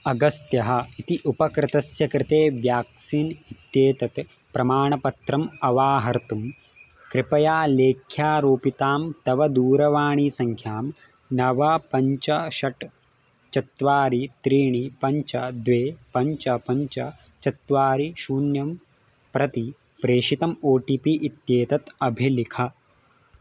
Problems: constant background noise